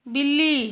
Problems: none marked